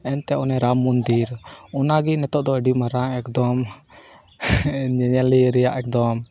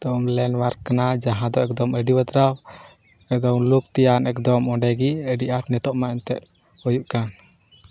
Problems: none marked